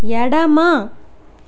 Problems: constant background noise